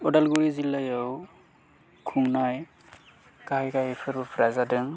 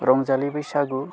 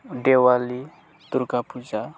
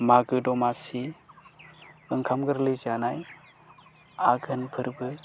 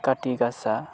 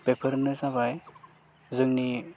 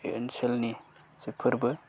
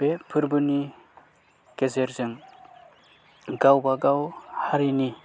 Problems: low volume